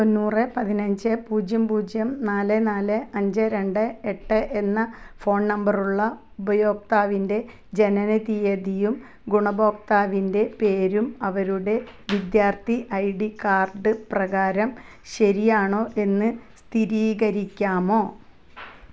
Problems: background sounds at intervals